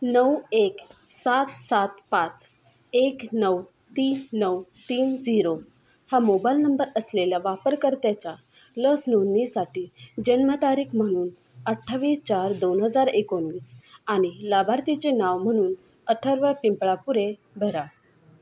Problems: background sounds at intervals